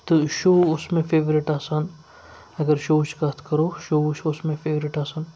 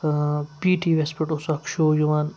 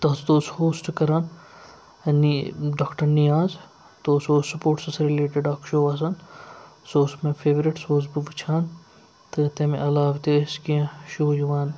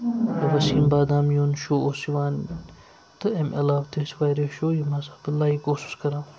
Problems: none marked